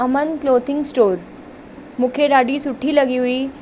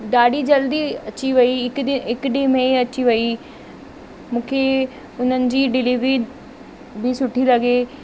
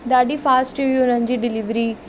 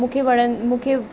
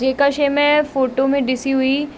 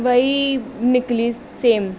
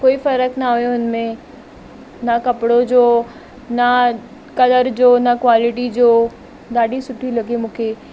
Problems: constant background noise